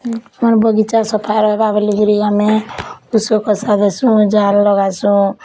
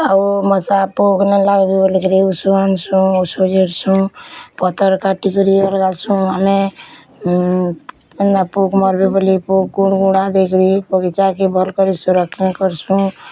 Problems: none marked